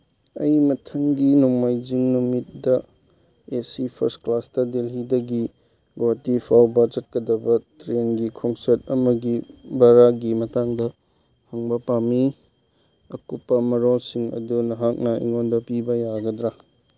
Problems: none marked